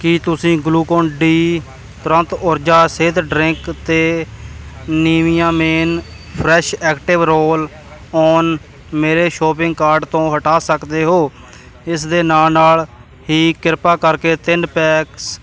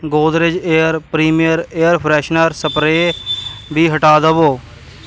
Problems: continuous background conversations